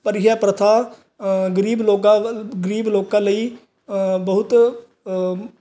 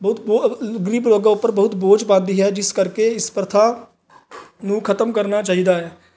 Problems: none marked